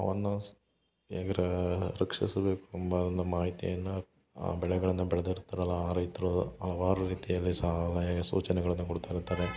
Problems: background conversations at intervals